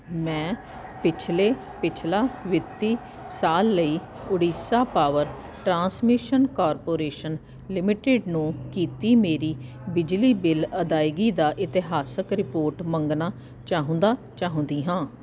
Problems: constant background noise